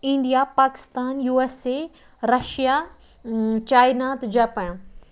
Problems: background sounds at intervals